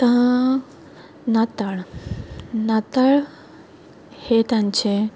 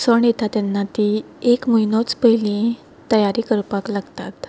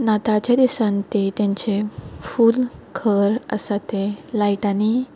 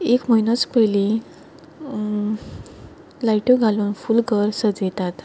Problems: background sounds at intervals